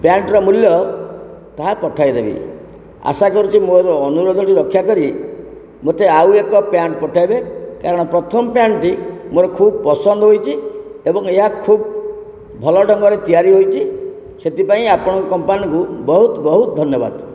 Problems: constant background noise